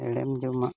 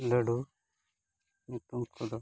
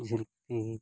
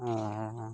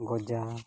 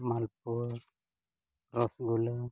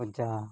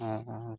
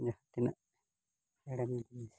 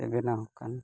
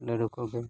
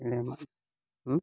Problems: background sounds at intervals